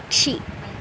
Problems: constant background noise